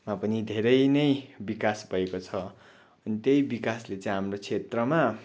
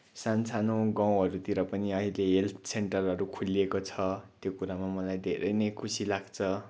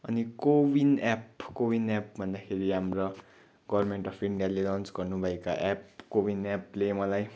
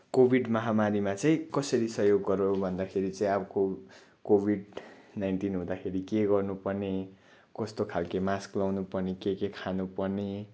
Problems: background sounds at intervals